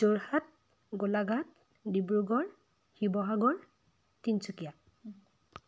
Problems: background sounds at intervals